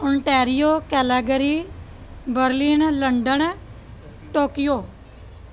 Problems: none marked